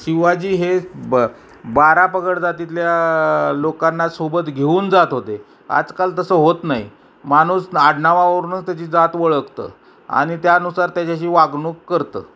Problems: background sounds at intervals, background conversations at intervals